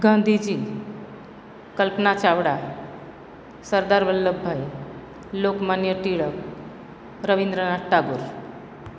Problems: none marked